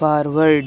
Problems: constant background noise